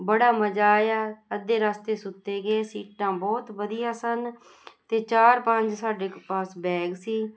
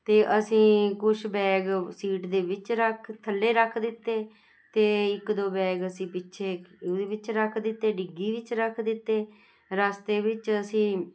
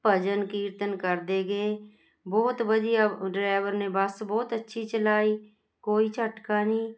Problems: constant background noise